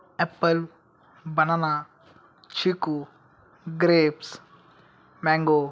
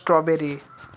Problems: background sounds at intervals